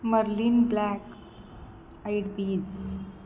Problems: constant background noise